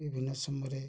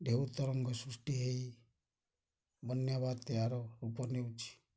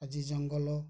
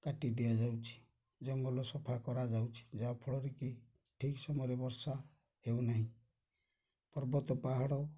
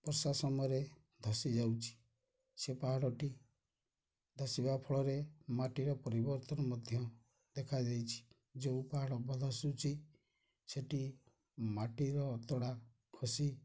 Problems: none marked